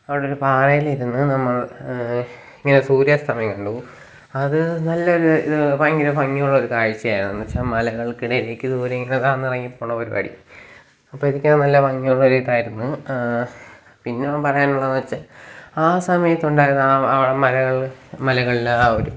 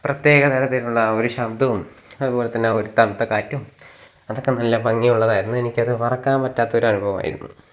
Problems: none marked